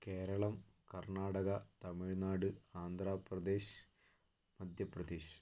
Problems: low volume